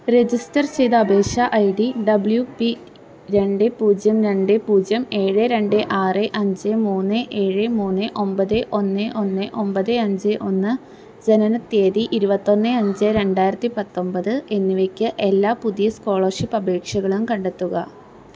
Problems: background sounds at intervals